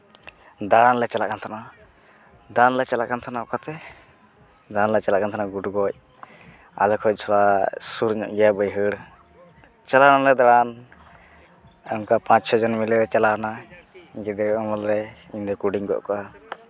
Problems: continuous background conversations